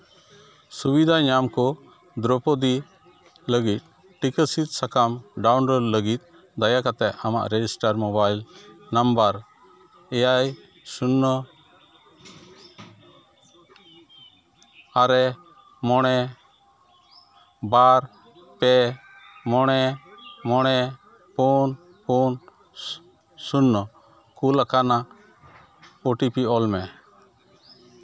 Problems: constant background noise, continuous background conversations